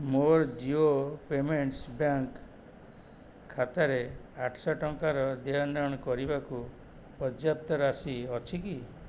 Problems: none marked